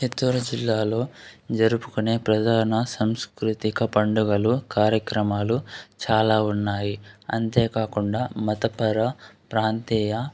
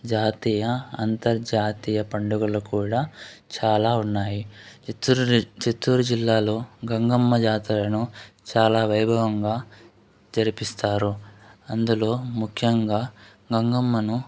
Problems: constant background noise, background conversations at intervals